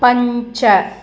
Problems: constant background noise